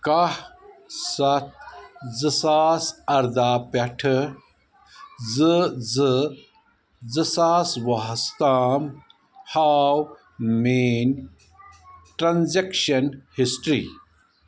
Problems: continuous background conversations